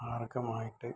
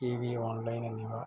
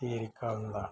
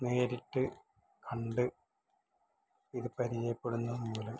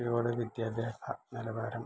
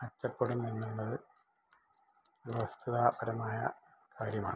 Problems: low volume